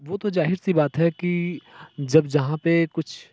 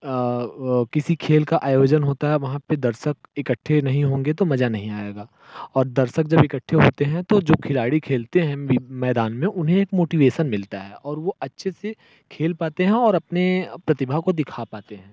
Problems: constant background noise